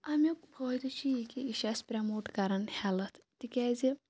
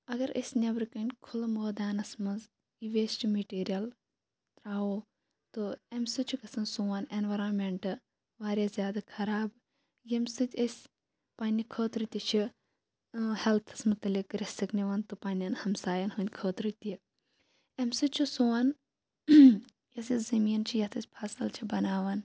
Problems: none marked